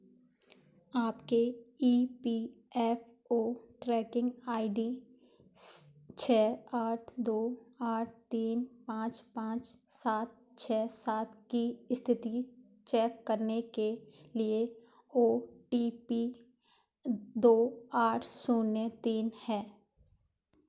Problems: background sounds at intervals